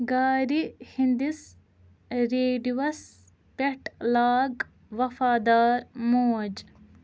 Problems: none marked